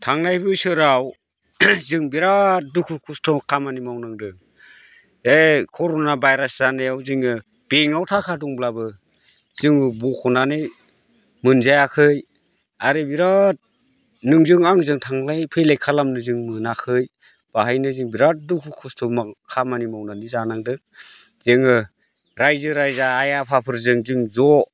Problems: none marked